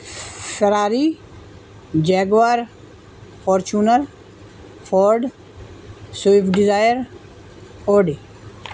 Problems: constant background noise